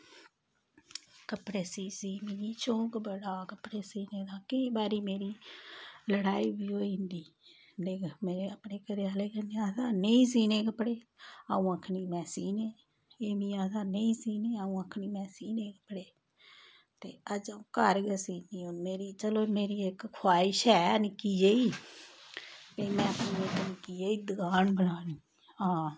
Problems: none marked